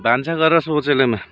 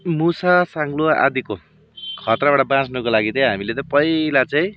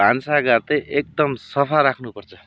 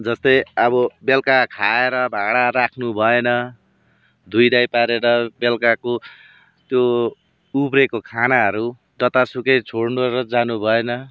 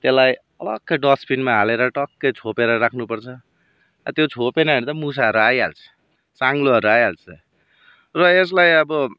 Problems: background sounds at intervals